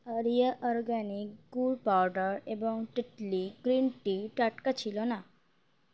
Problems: none marked